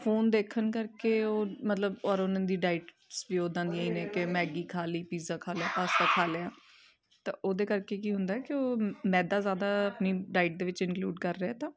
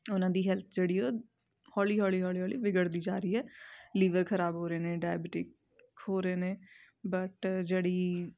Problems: background sounds at intervals, continuous background conversations